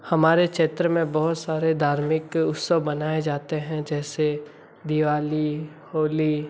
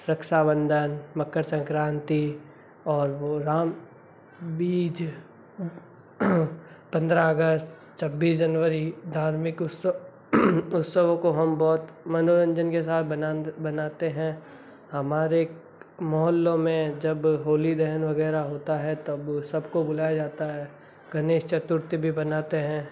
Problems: none marked